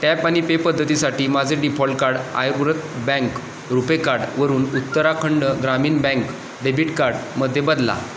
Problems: constant background noise